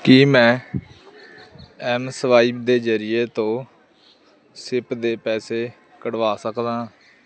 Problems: constant background noise